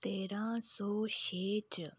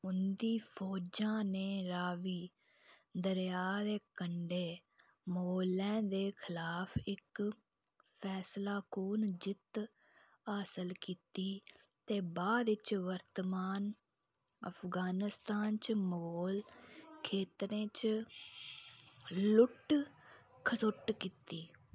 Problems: none marked